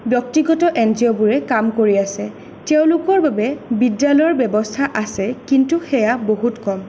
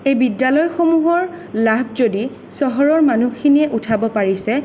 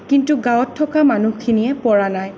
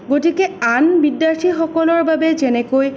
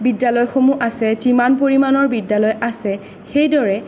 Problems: none marked